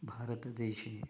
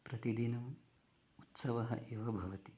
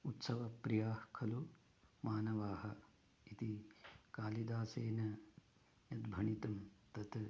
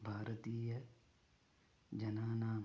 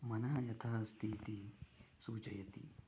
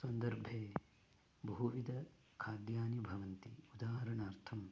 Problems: low volume